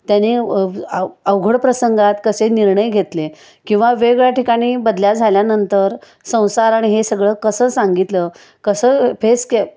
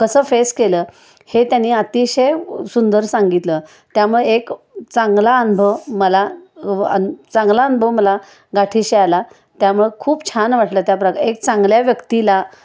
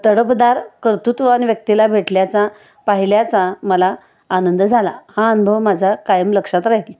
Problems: none marked